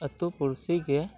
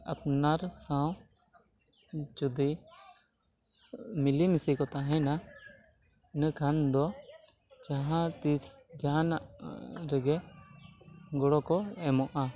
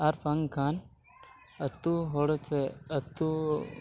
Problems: none marked